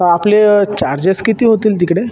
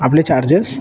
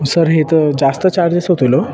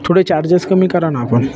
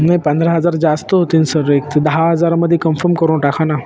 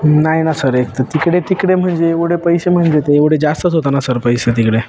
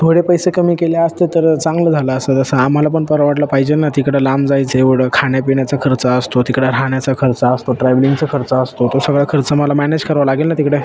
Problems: constant background noise, continuous background conversations